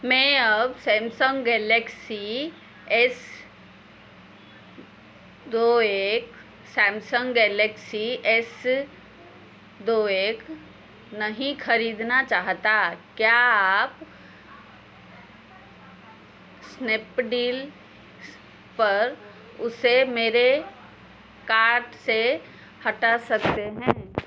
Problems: constant background noise